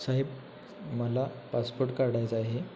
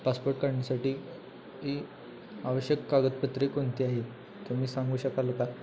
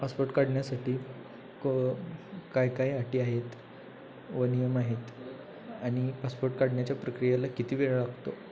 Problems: none marked